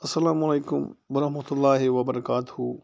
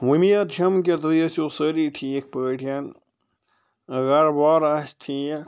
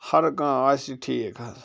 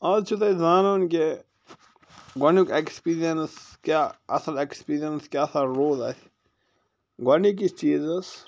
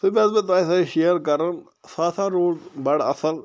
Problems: none marked